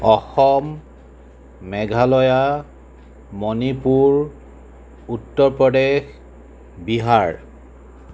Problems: none marked